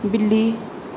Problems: none marked